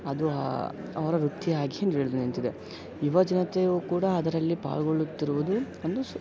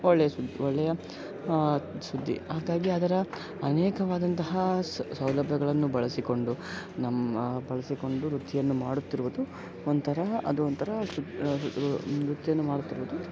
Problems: background sounds at intervals